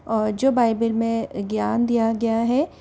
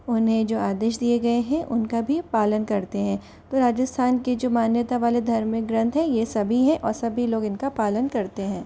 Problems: constant background noise